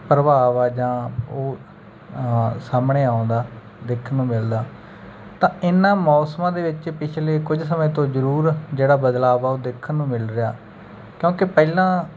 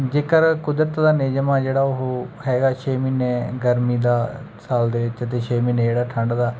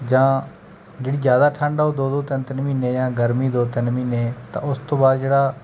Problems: none marked